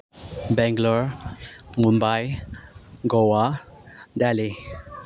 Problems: background sounds at intervals